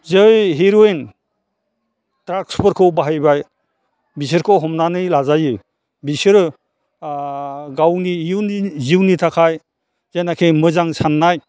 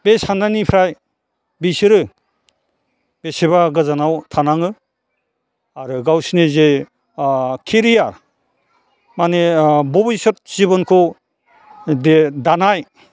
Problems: none marked